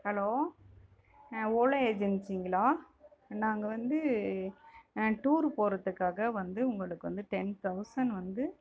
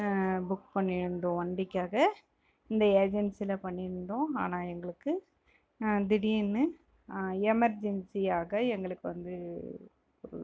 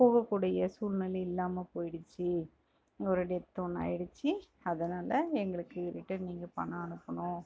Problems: background conversations at intervals